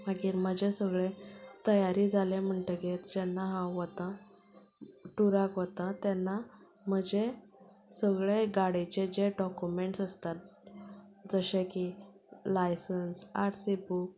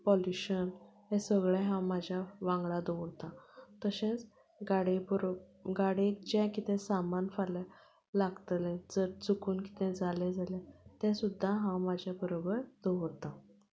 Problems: background sounds at intervals, background conversations at intervals